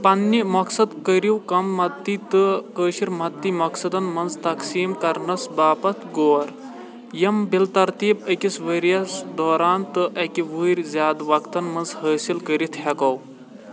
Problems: constant background noise